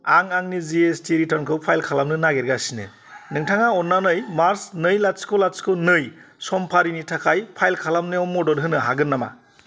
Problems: constant background noise